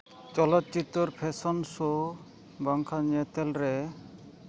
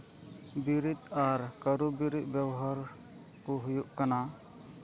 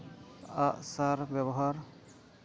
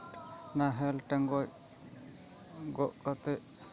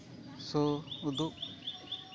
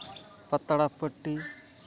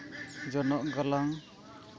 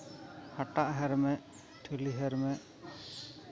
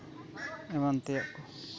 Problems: background sounds at intervals, continuous background conversations